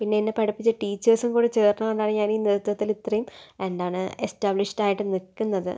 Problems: none marked